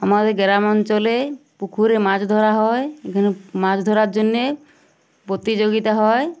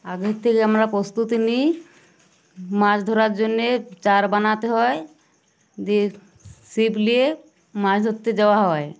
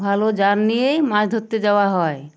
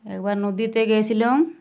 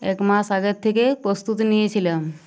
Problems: none marked